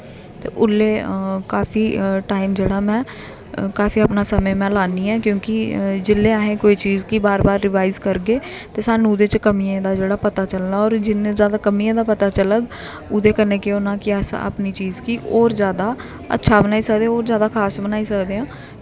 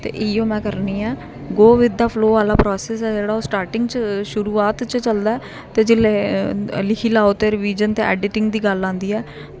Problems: constant background noise